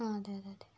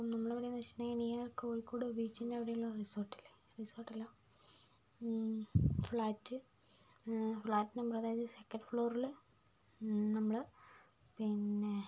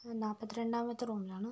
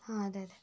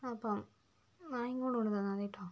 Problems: low volume